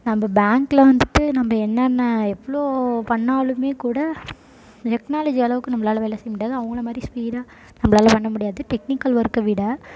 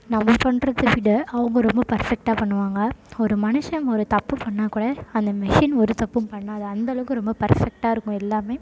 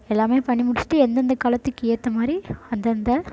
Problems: constant background noise